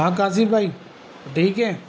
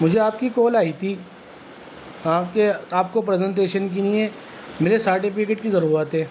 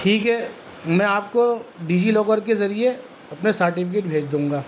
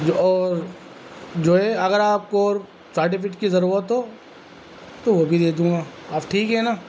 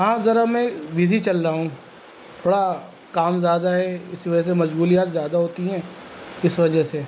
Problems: constant background noise